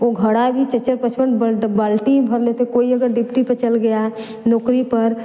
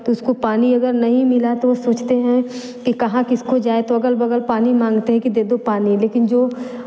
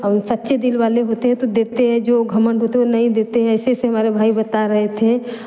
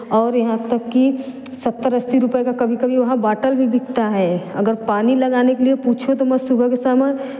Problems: none marked